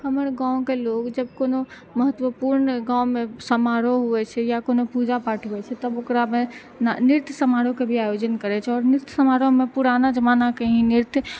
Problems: none marked